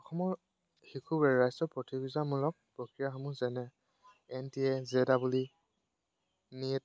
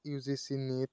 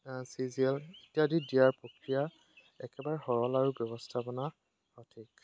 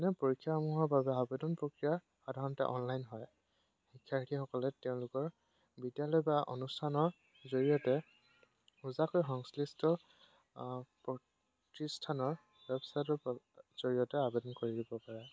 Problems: background sounds at intervals